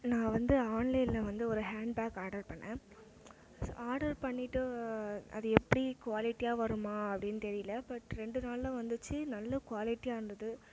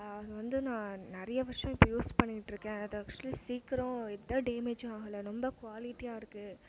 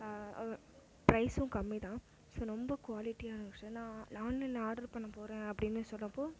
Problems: low volume